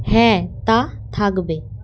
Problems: none marked